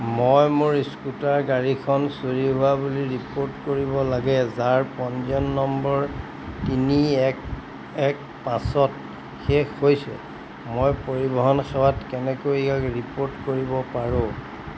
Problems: constant background noise